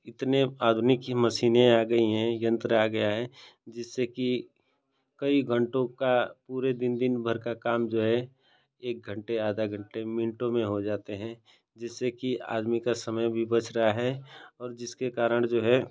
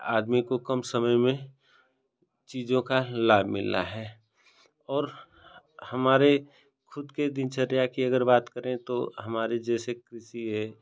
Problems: none marked